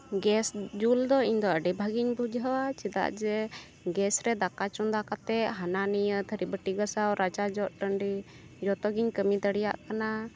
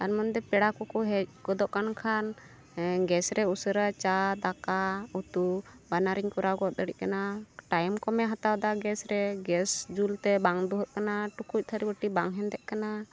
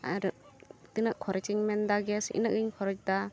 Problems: constant background noise